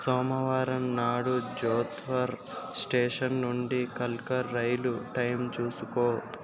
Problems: continuous background conversations